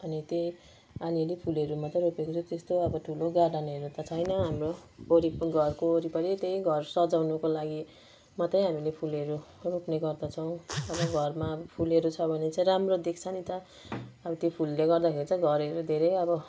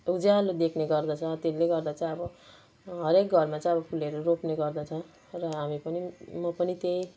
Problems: none marked